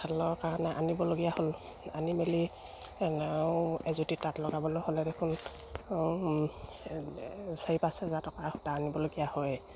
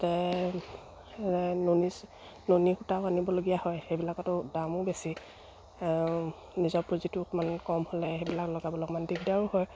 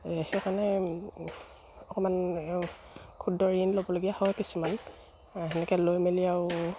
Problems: none marked